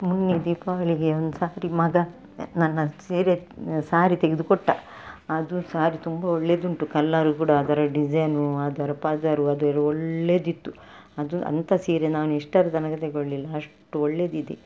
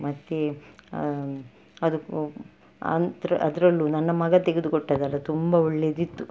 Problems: background sounds at intervals